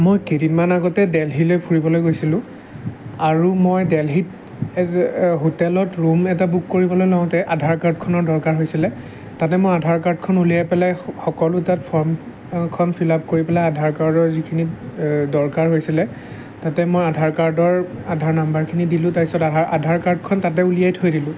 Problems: none marked